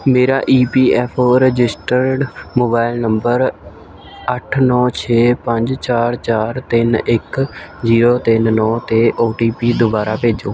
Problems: constant background noise